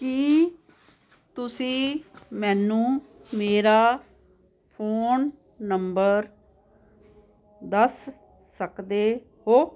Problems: constant background noise